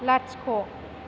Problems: constant background noise